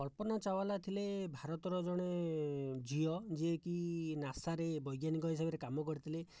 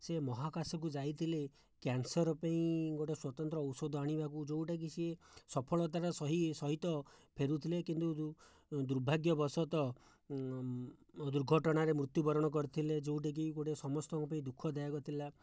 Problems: low volume